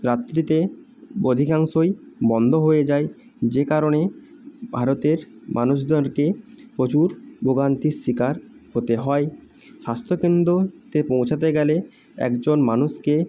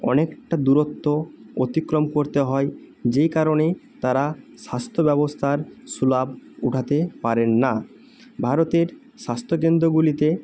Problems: none marked